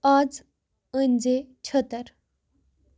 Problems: none marked